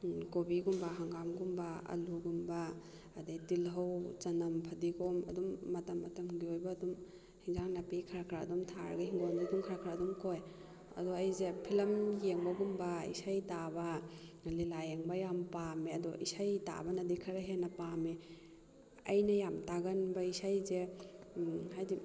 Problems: background conversations at intervals